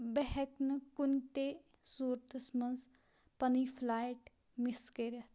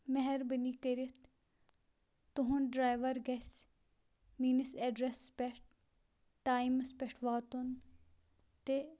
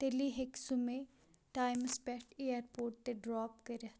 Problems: none marked